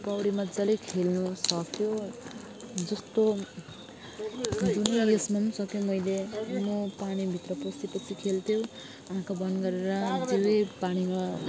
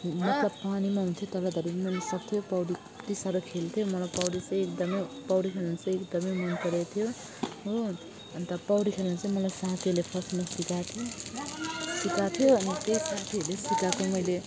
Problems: continuous background conversations